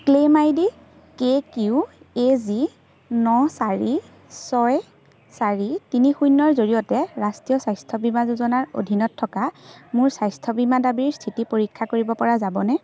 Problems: constant background noise, background conversations at intervals